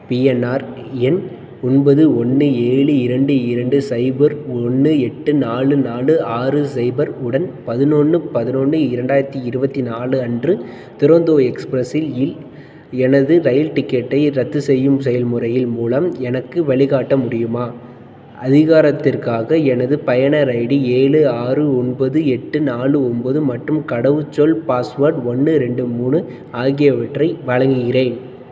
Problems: none marked